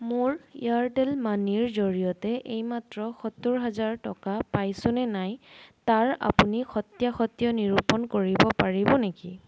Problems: none marked